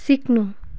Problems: continuous background conversations